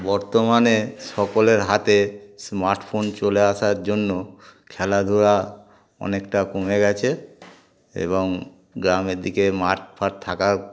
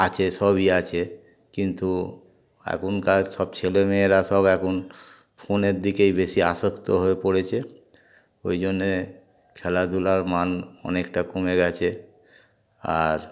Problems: background sounds at intervals, background conversations at intervals